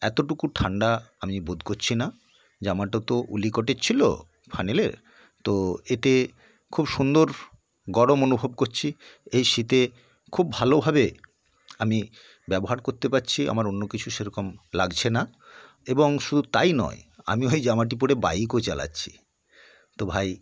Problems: background sounds at intervals